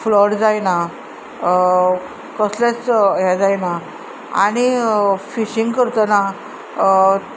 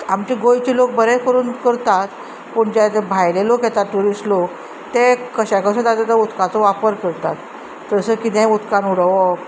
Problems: constant background noise